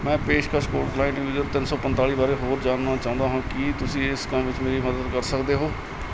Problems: constant background noise